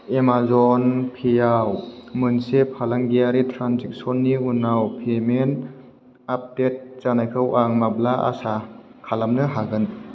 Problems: none marked